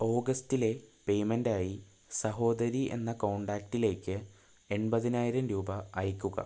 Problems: background sounds at intervals, low volume